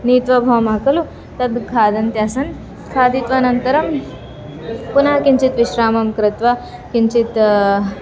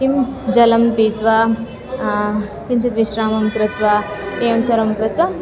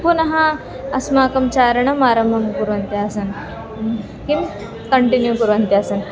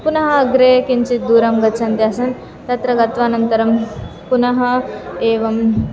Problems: background sounds at intervals